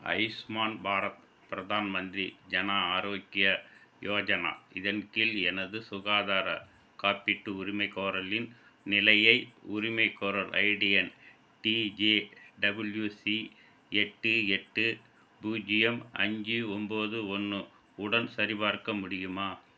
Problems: constant background noise